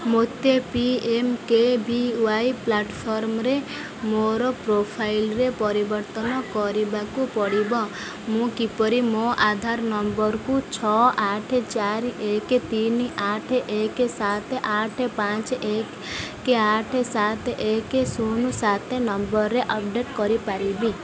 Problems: continuous background conversations